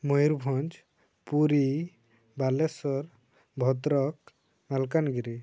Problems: low volume